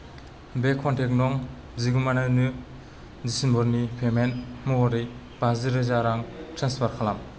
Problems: none marked